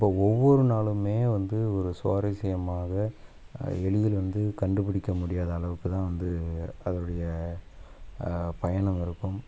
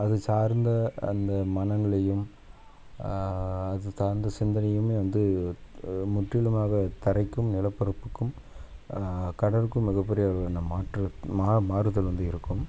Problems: background sounds at intervals